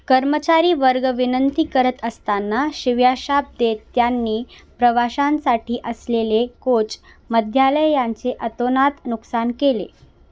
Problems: none marked